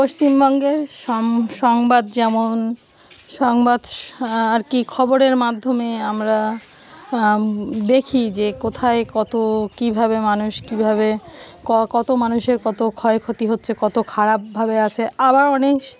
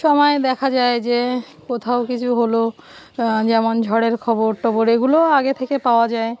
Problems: background sounds at intervals